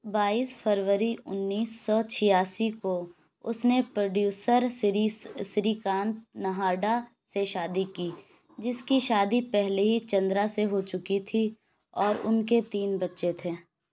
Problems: none marked